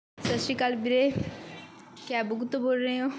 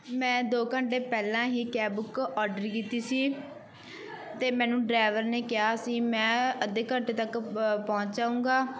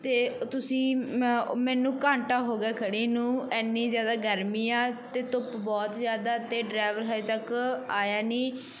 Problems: background sounds at intervals